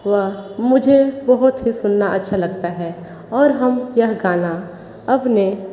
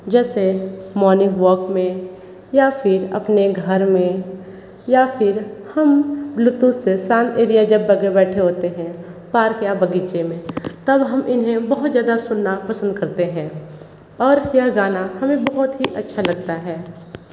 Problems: constant background noise